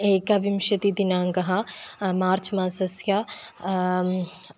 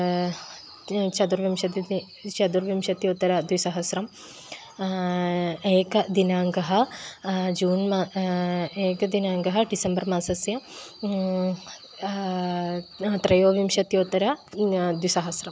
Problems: constant background noise